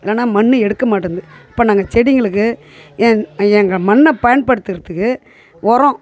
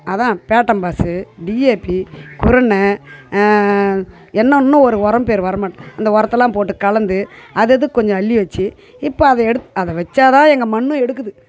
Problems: none marked